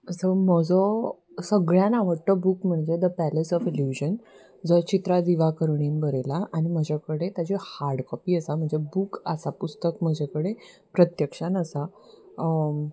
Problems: none marked